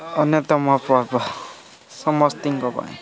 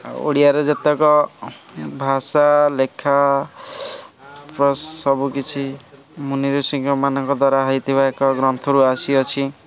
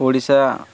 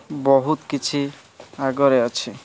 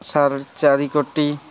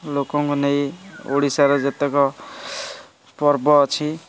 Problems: constant background noise, continuous background conversations